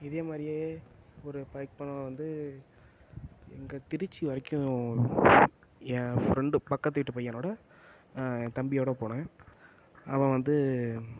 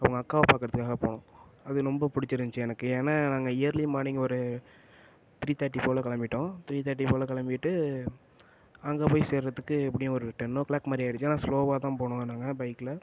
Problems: none marked